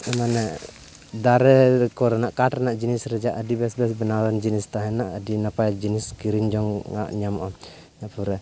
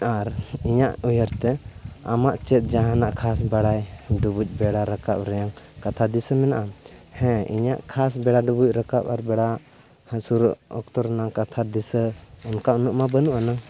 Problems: background sounds at intervals, continuous background conversations